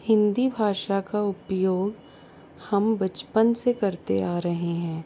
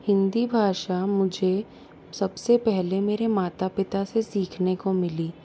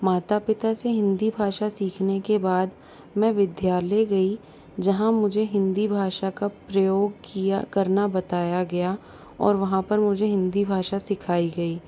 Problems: background sounds at intervals